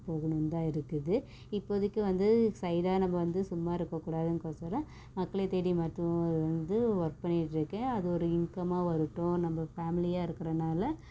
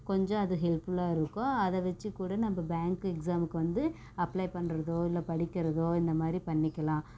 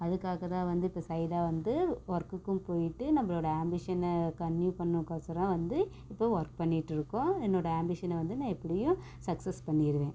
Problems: background sounds at intervals, low volume